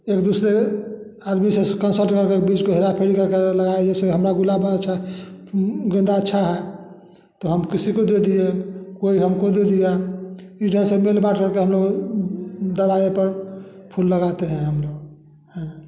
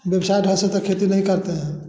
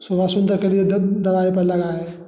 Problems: none marked